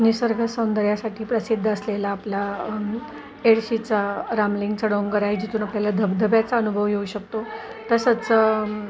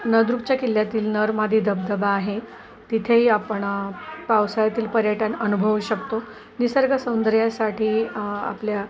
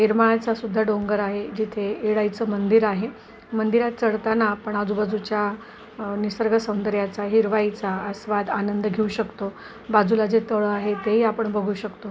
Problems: constant background noise, continuous background conversations